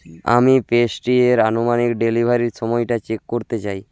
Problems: constant background noise